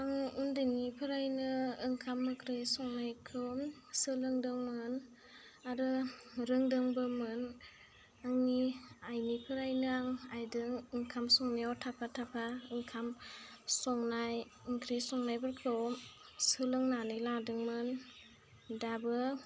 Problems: constant background noise